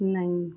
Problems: background sounds at intervals